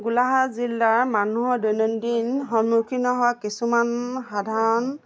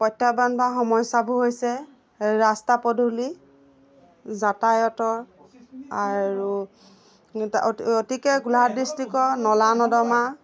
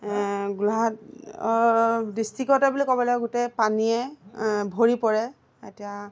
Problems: constant background noise, background conversations at intervals